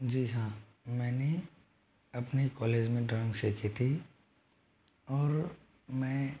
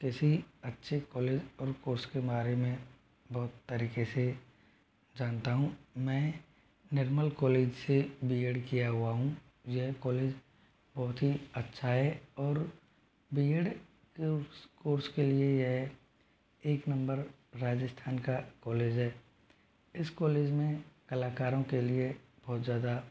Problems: low volume